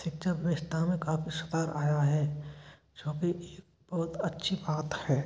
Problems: none marked